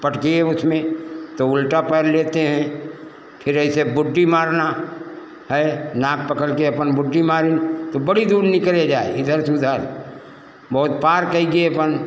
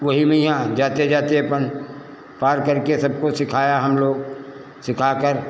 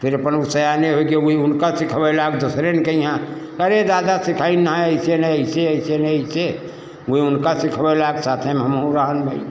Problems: constant background noise